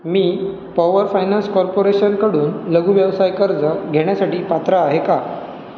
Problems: none marked